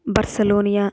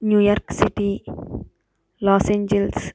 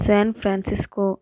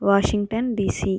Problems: none marked